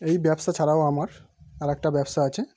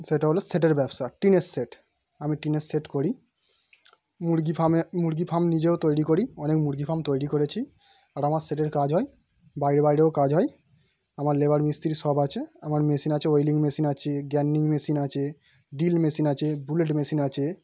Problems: background sounds at intervals